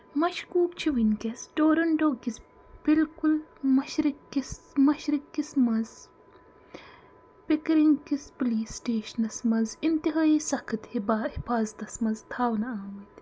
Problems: constant background noise